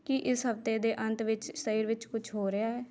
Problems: background conversations at intervals